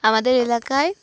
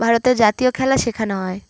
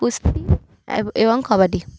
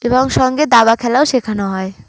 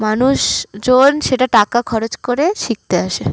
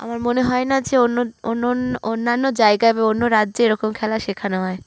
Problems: constant background noise, low volume